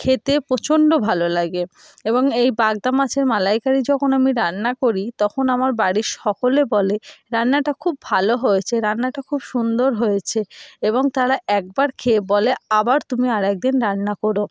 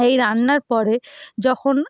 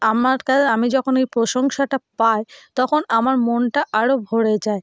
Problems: background sounds at intervals